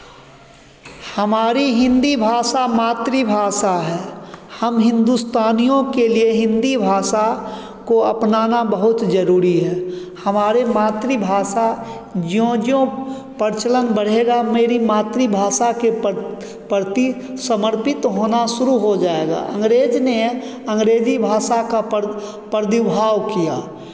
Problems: echo